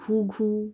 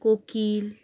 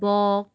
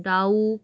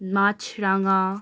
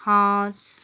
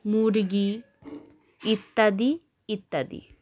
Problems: constant background noise